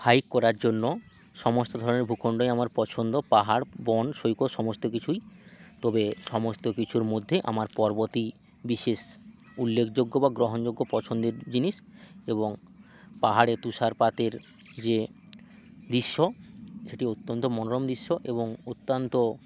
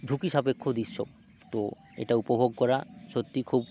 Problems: none marked